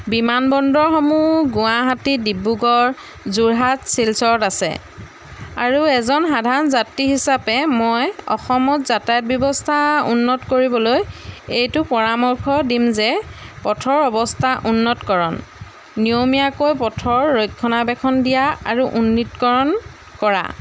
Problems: background sounds at intervals